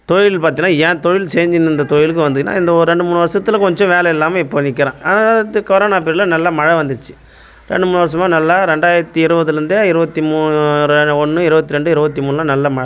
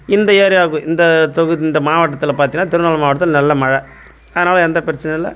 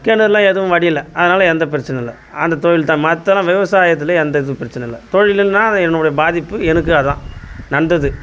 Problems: constant background noise